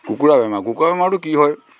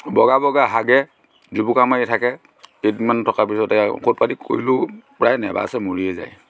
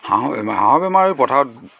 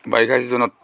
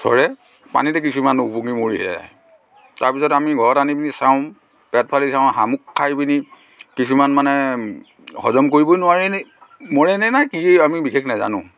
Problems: constant background noise